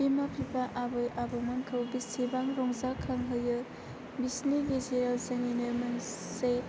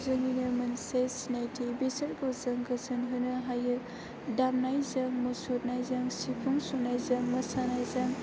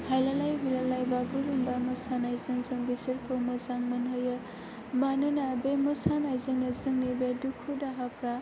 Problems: constant background noise